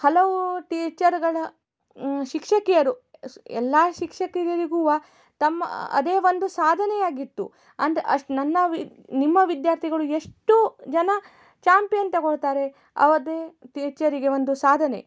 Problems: none marked